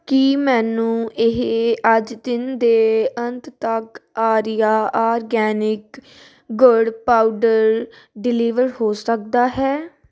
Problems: none marked